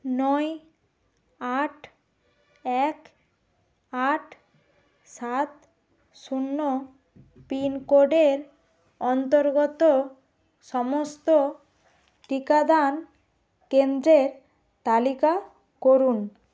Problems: none marked